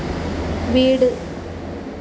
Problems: constant background noise